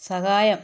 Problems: none marked